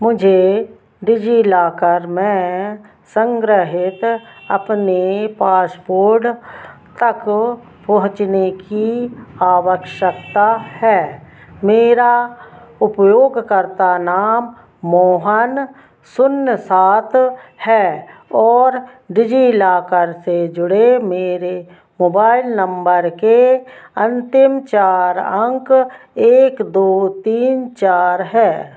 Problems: none marked